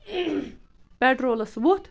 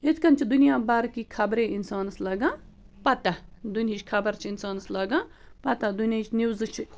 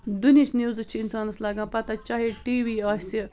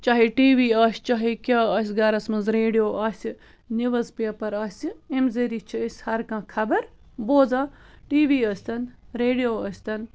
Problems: constant background noise